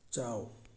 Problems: low volume